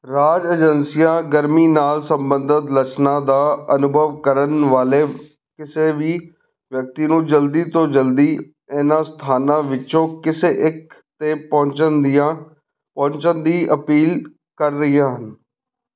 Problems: none marked